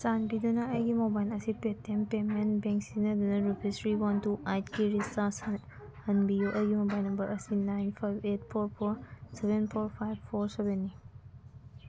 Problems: background sounds at intervals